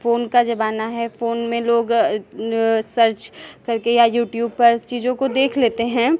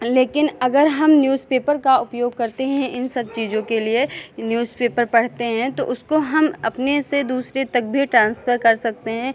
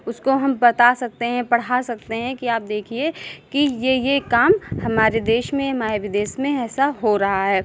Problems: none marked